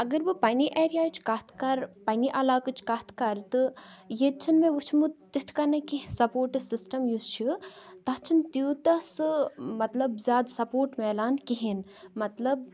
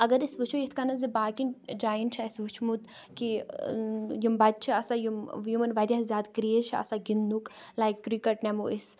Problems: continuous background conversations